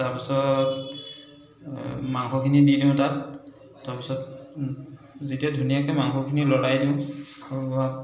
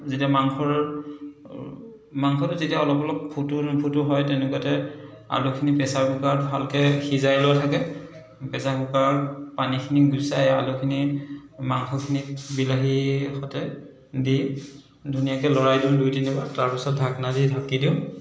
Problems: echo